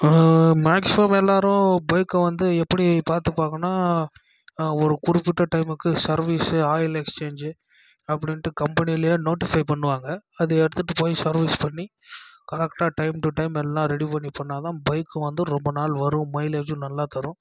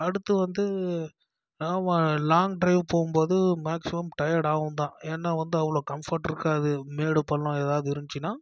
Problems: low volume